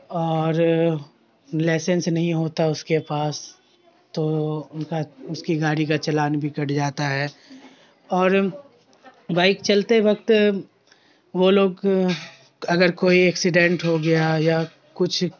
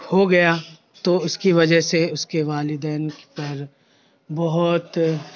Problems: constant background noise